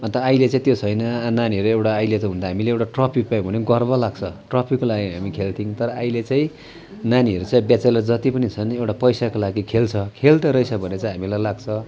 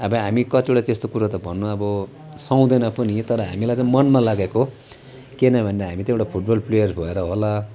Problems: none marked